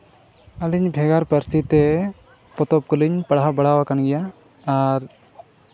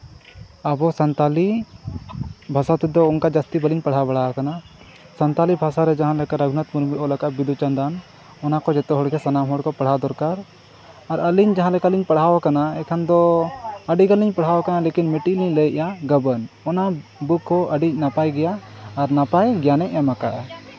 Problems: constant background noise, background conversations at intervals